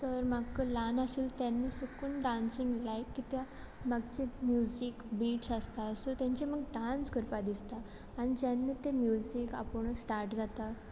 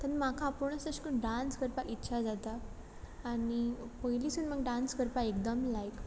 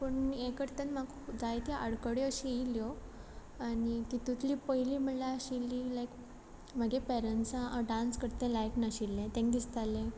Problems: background sounds at intervals